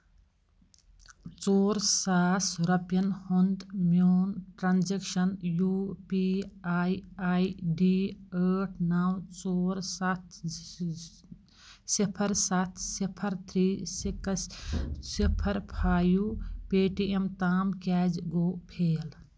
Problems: none marked